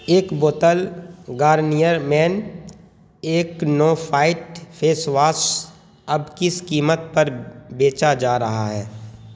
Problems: constant background noise